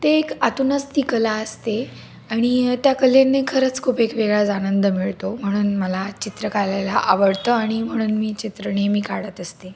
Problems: none marked